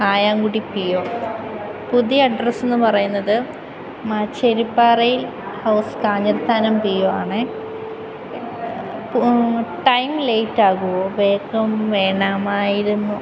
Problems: constant background noise